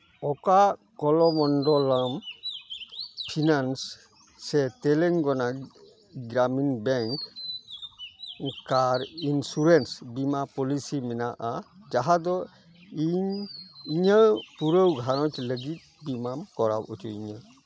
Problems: constant background noise